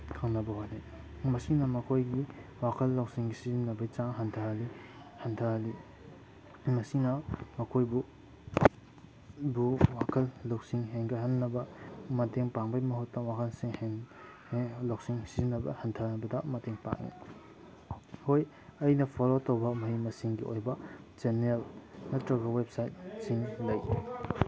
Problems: background sounds at intervals